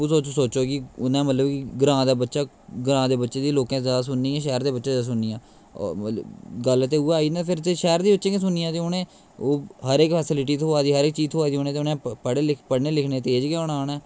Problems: constant background noise